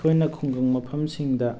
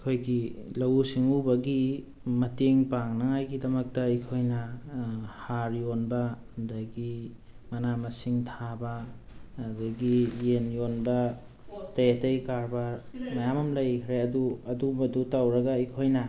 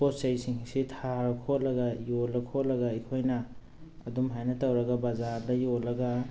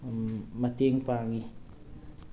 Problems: background sounds at intervals